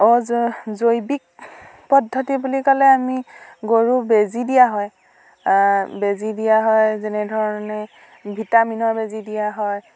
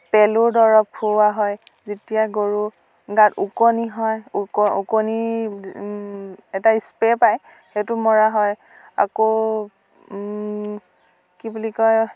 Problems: constant background noise